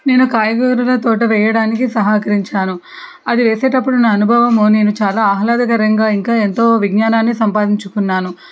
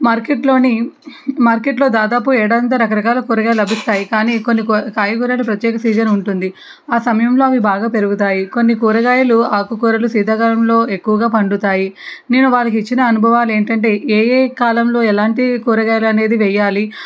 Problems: background sounds at intervals